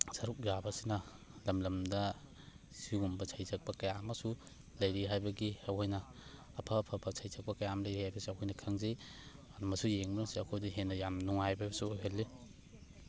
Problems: background sounds at intervals, background conversations at intervals